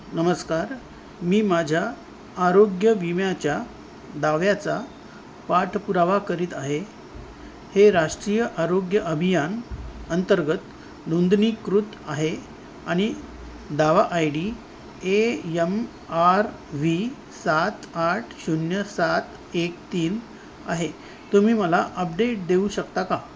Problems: constant background noise